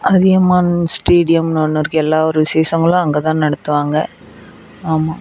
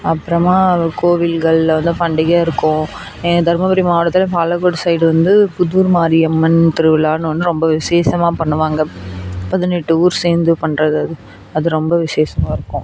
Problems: background sounds at intervals